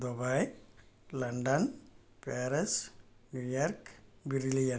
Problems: low volume